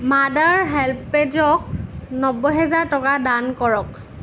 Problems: none marked